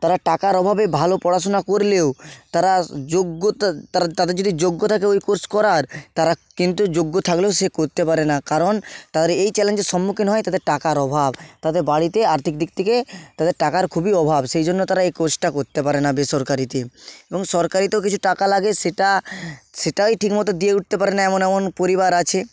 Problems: constant background noise